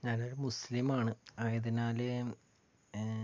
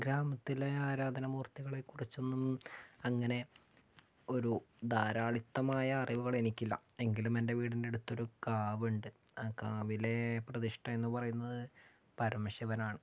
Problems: low volume